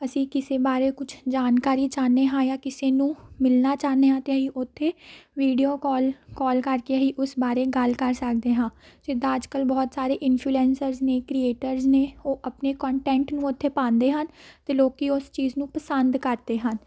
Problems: background sounds at intervals